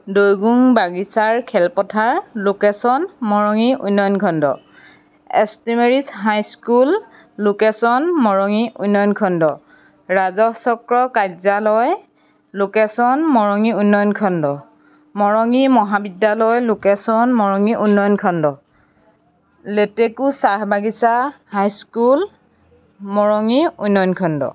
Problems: none marked